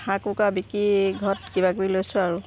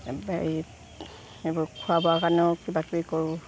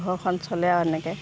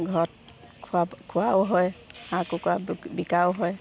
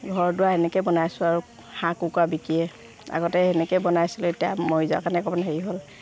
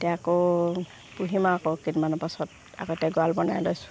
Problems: background sounds at intervals